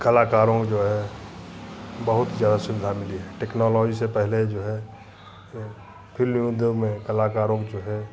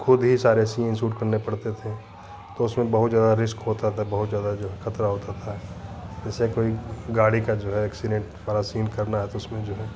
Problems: none marked